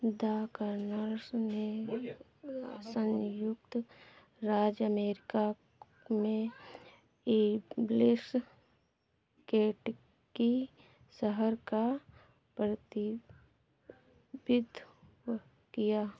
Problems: background sounds at intervals, background conversations at intervals